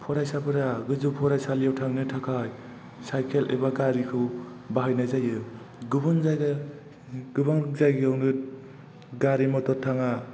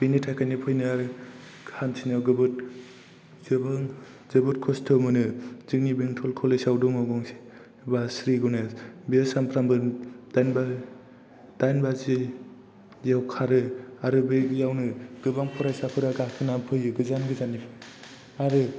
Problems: background sounds at intervals